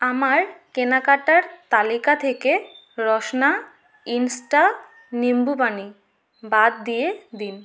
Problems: constant background noise